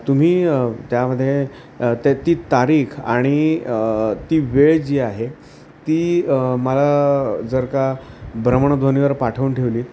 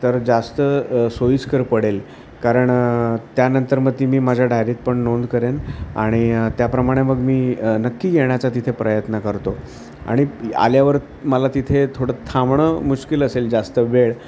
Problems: constant background noise